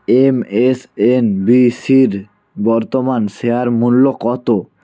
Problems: background conversations at intervals